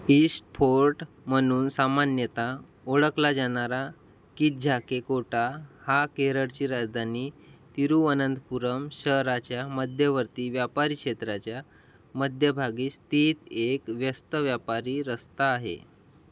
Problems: none marked